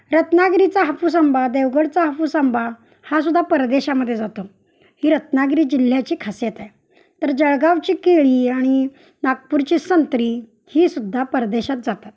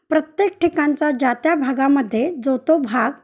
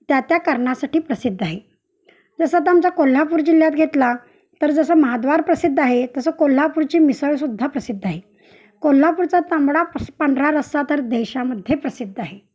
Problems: none marked